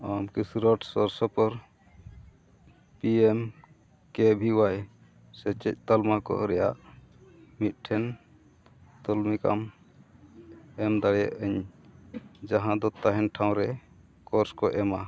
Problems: background sounds at intervals, low volume